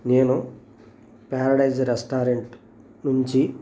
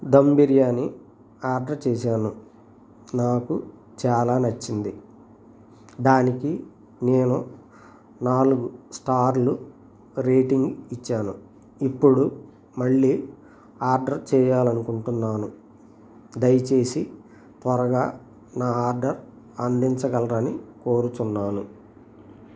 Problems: constant background noise